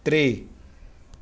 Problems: constant background noise